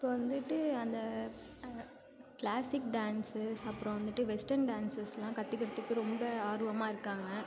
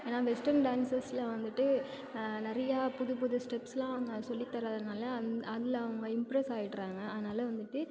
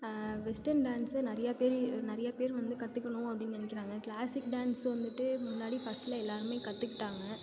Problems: none marked